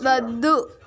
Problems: background conversations at intervals